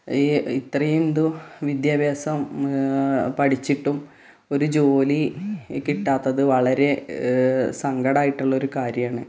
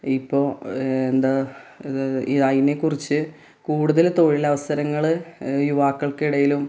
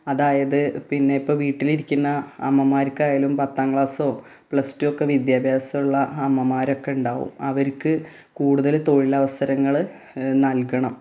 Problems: none marked